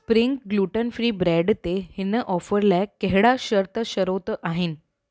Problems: none marked